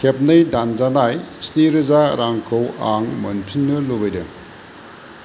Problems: constant background noise